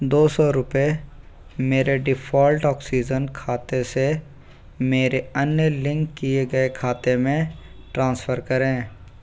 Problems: constant background noise